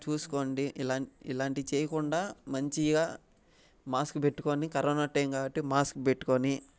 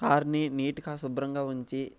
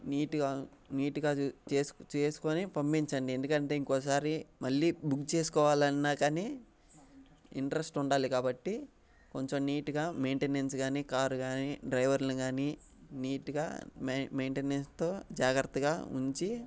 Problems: none marked